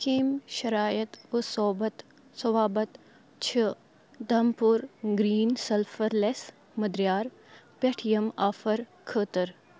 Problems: background sounds at intervals, background conversations at intervals